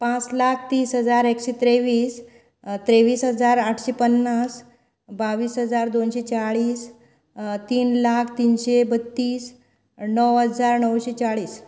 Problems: none marked